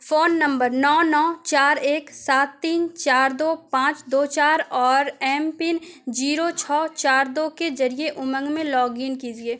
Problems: none marked